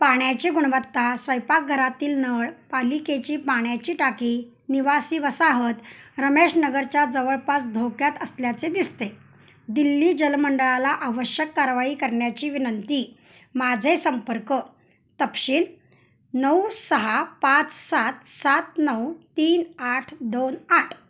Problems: constant background noise